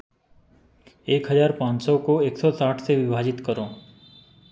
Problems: constant background noise